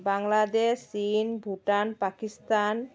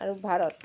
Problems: constant background noise